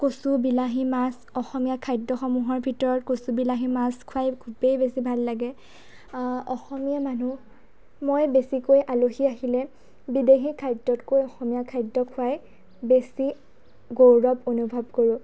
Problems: background conversations at intervals